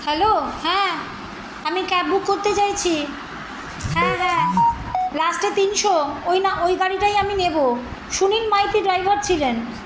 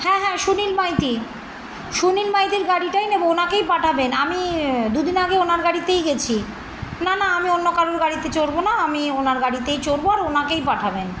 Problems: constant background noise